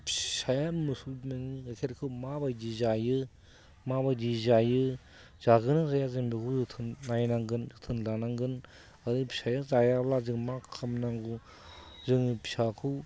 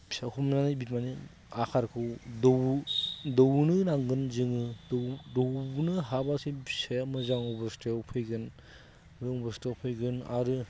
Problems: constant background noise